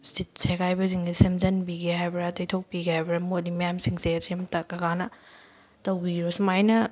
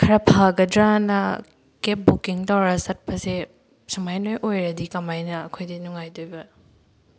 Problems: background sounds at intervals